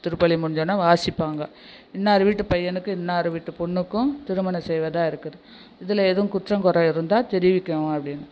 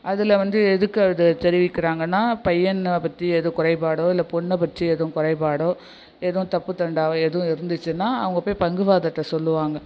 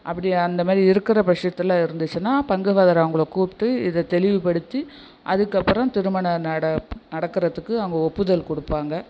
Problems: background sounds at intervals